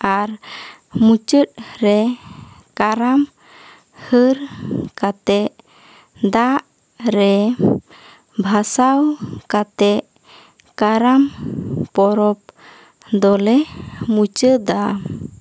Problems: none marked